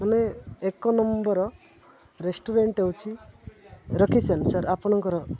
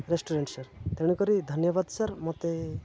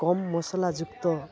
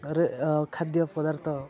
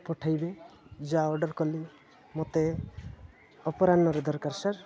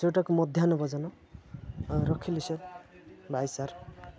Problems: none marked